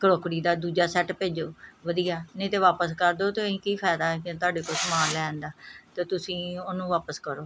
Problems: background sounds at intervals